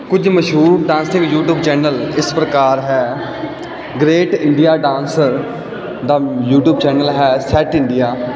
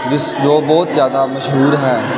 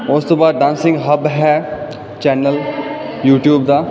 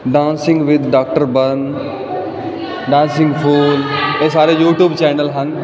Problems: continuous background conversations